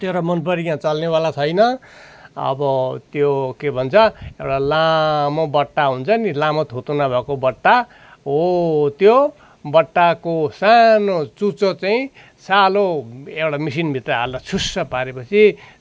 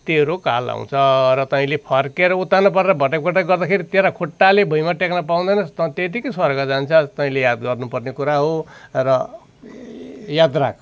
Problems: constant background noise